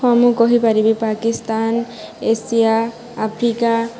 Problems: constant background noise